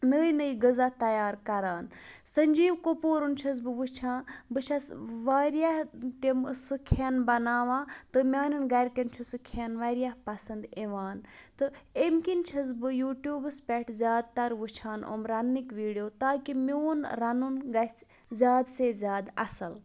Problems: none marked